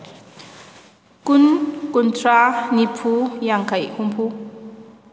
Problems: constant background noise